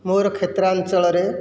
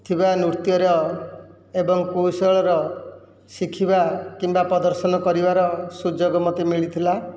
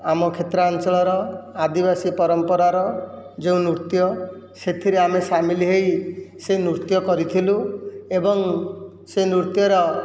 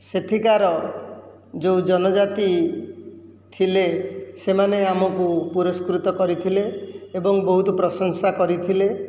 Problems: none marked